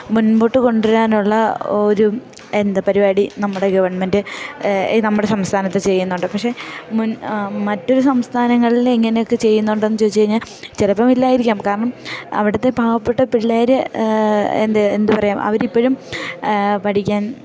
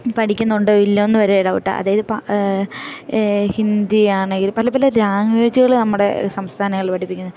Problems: background sounds at intervals